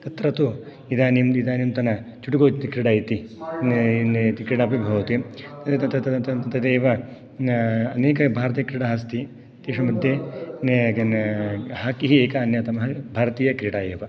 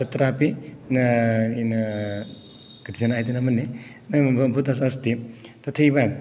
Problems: background sounds at intervals